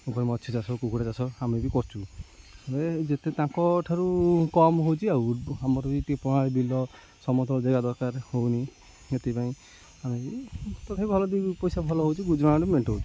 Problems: constant background noise